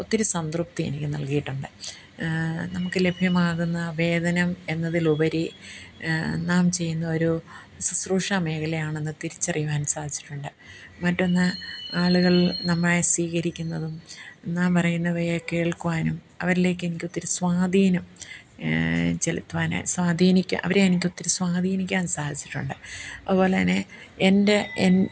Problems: background sounds at intervals